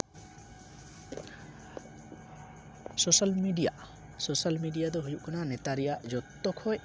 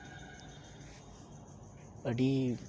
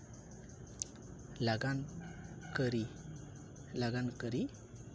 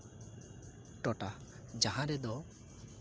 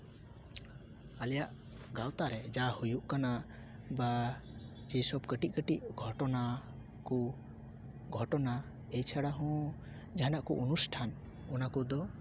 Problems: background sounds at intervals